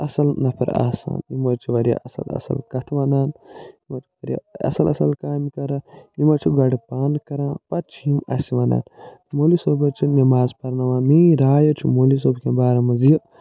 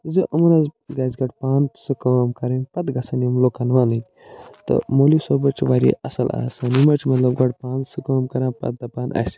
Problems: none marked